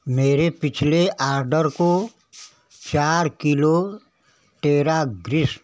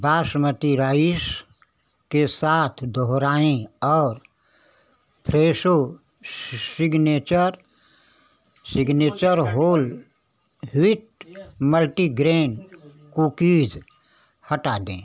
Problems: constant background noise